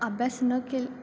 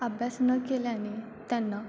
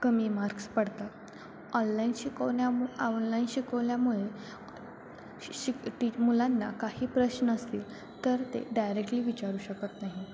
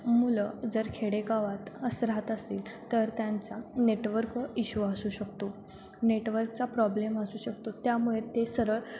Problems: constant background noise, continuous background conversations